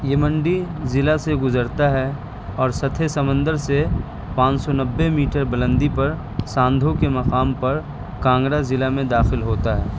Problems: constant background noise